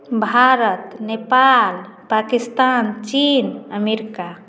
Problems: none marked